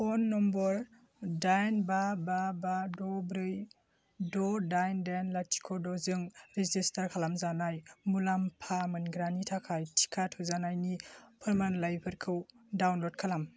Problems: constant background noise